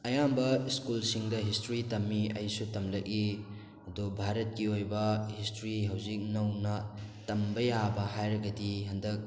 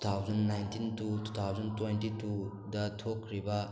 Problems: background sounds at intervals, background conversations at intervals